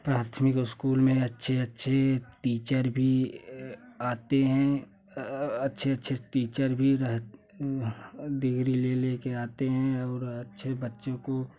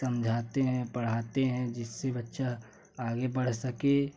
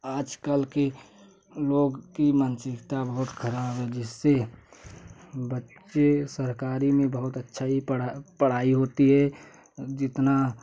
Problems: constant background noise